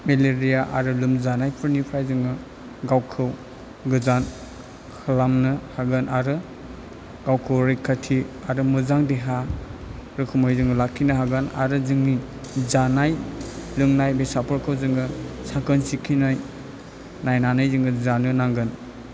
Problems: low volume